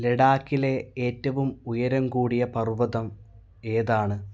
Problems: none marked